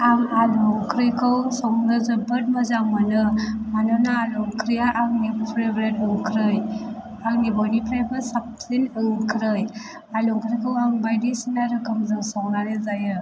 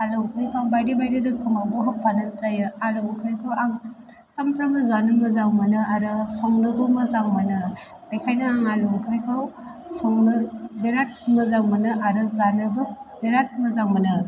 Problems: low volume